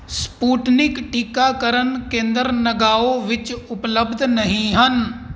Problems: none marked